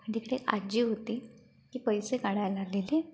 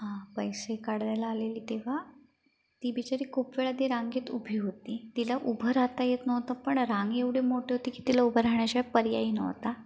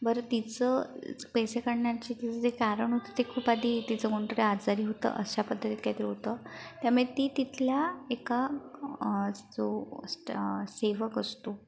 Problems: background sounds at intervals